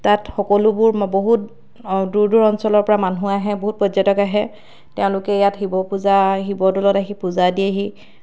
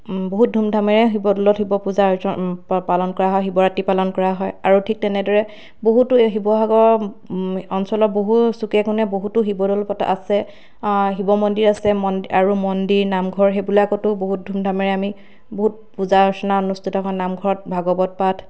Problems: constant background noise